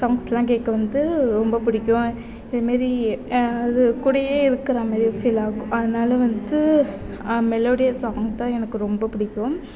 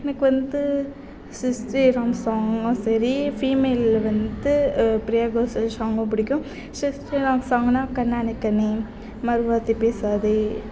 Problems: background sounds at intervals